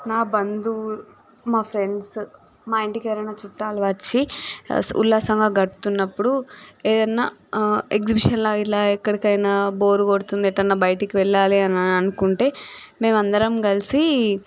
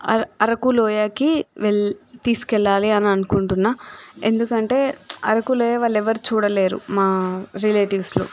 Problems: background sounds at intervals